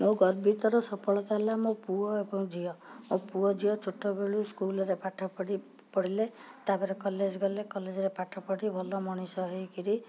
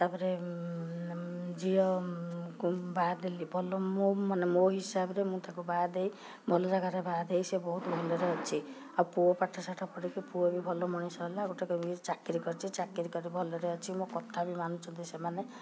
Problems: background sounds at intervals